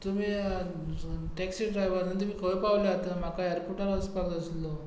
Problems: background sounds at intervals